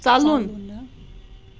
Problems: constant background noise